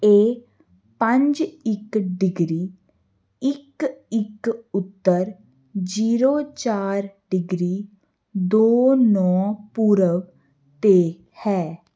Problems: constant background noise